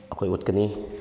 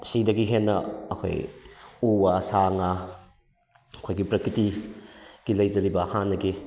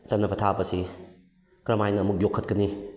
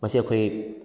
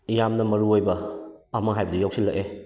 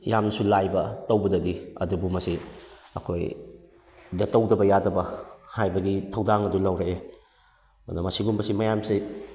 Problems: background sounds at intervals